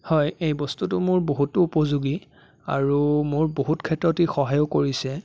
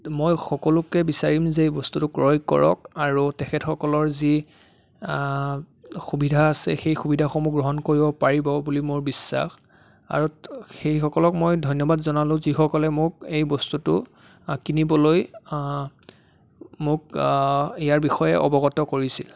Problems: background sounds at intervals